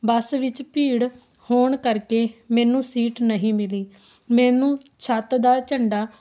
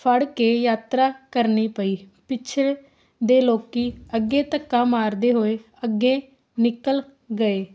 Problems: constant background noise